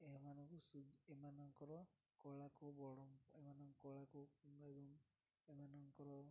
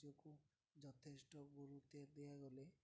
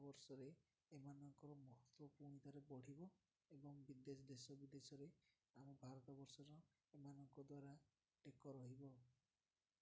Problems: none marked